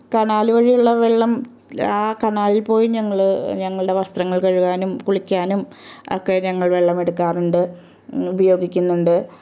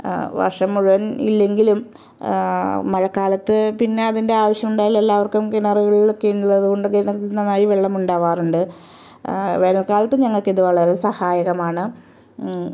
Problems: none marked